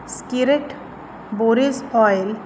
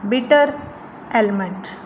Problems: background sounds at intervals